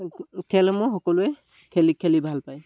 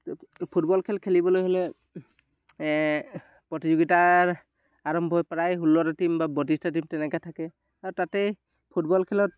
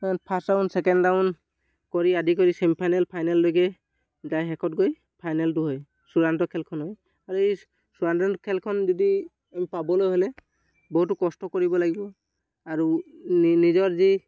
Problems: none marked